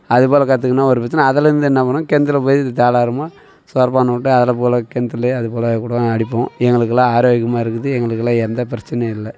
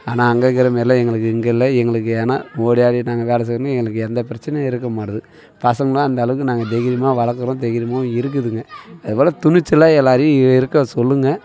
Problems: continuous background conversations